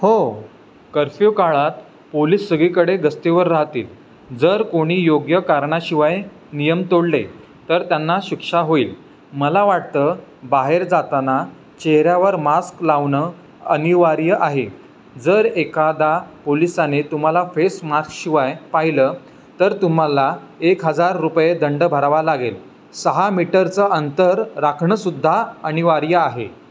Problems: background sounds at intervals